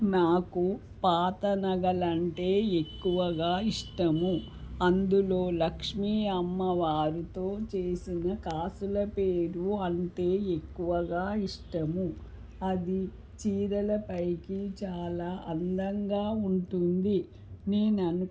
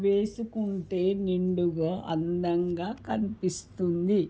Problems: none marked